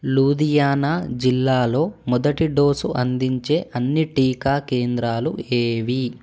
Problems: none marked